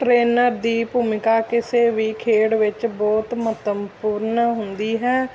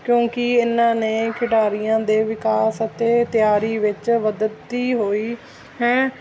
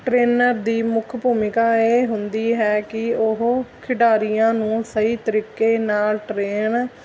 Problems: constant background noise